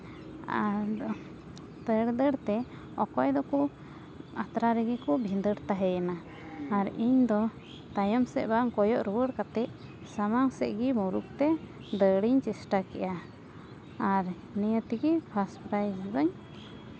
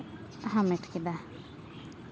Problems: background sounds at intervals